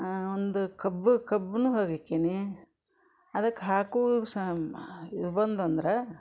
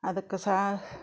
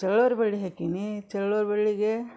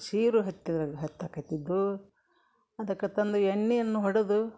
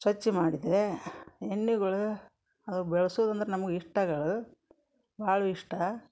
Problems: background conversations at intervals